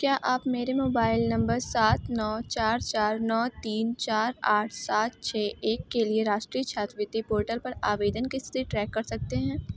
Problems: none marked